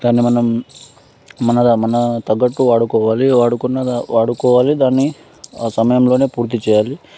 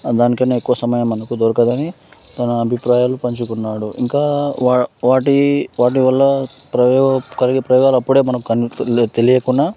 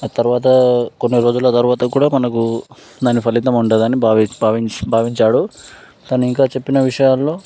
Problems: constant background noise